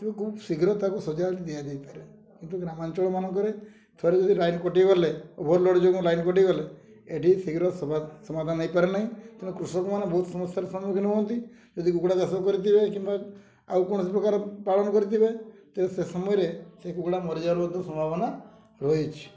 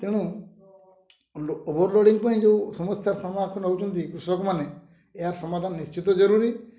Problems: low volume